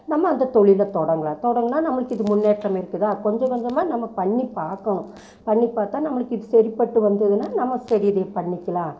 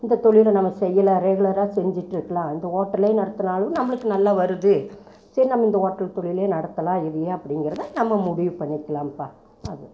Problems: none marked